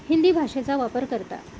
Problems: constant background noise, background conversations at intervals